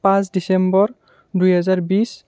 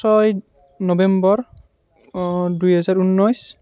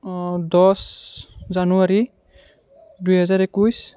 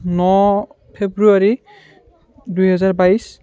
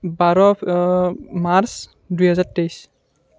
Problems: none marked